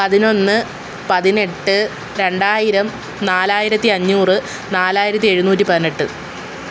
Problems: none marked